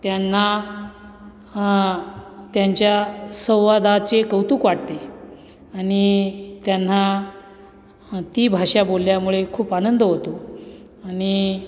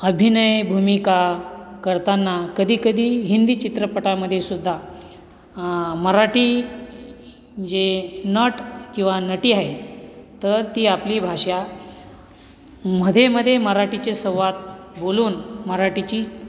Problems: constant background noise